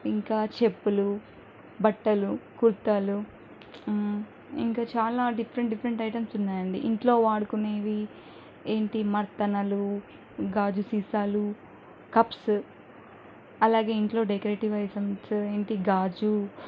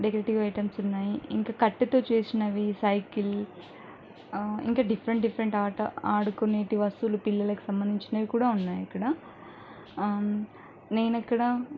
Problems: none marked